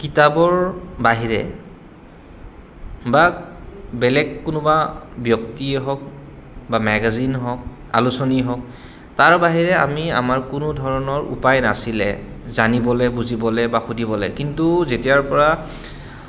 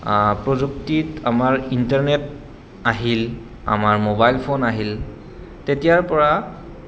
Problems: constant background noise